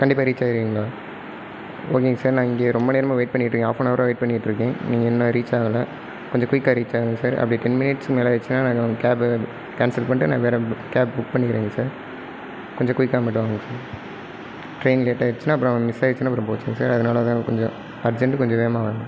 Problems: background sounds at intervals